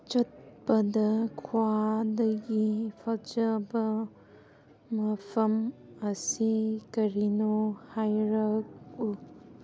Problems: constant background noise